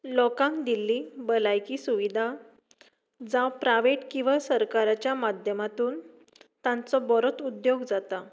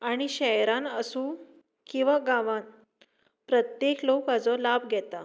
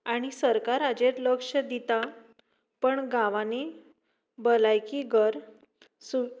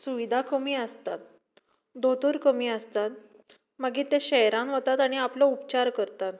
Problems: background sounds at intervals